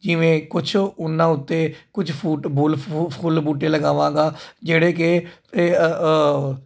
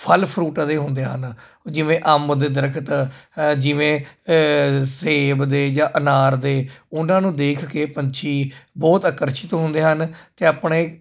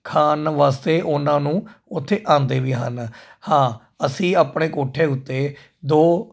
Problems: constant background noise